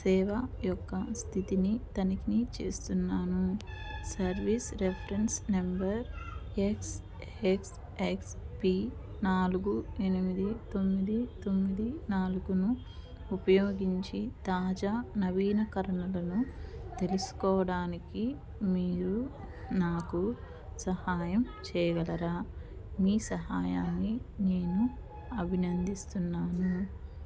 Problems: low volume